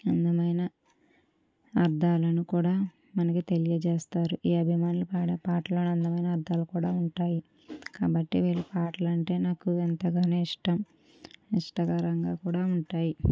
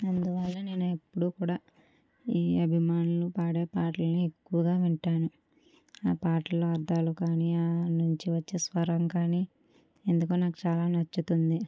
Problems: none marked